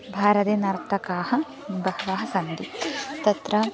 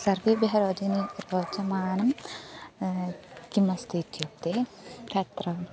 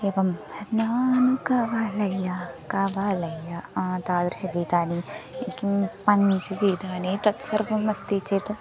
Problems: none marked